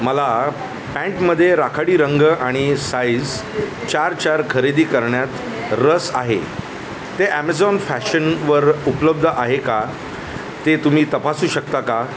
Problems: constant background noise